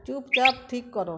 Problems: constant background noise, background conversations at intervals